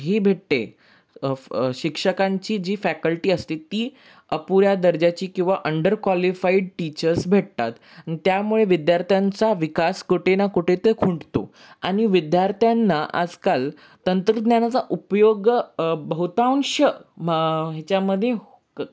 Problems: none marked